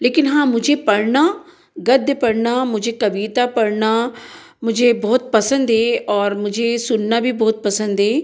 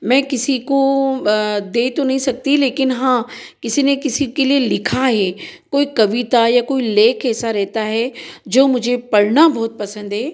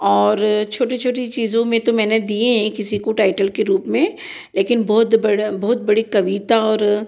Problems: none marked